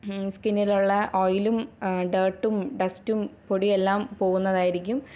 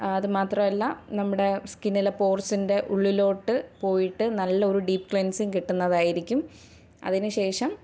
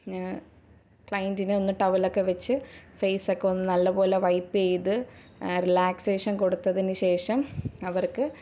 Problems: background sounds at intervals